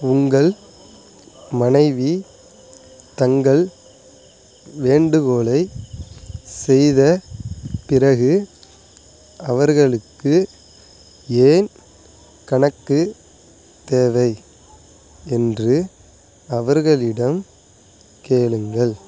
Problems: background sounds at intervals